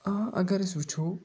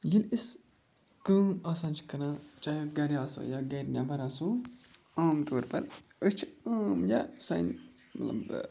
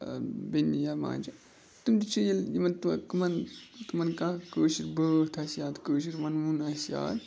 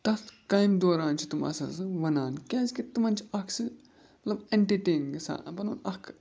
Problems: none marked